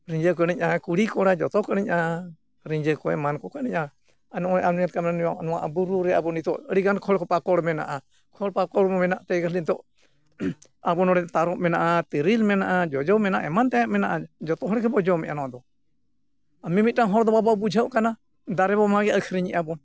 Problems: none marked